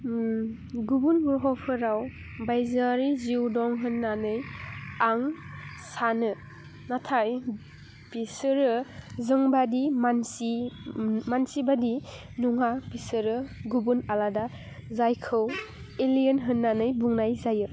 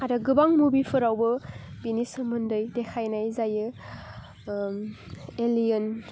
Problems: none marked